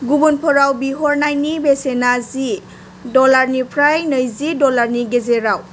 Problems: constant background noise